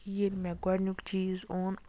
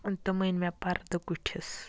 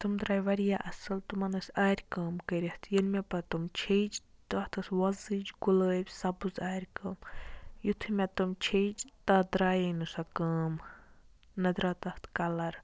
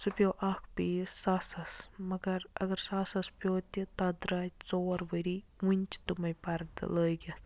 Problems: background sounds at intervals